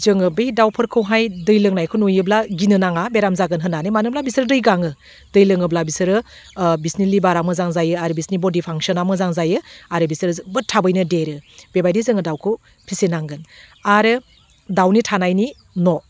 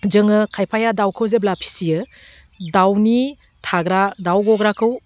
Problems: none marked